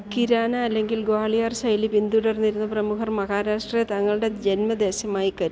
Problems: background sounds at intervals